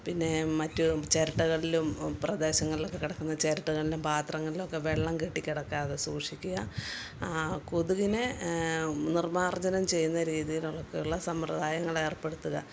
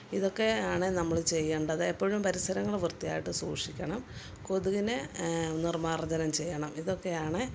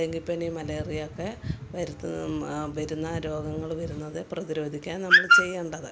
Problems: none marked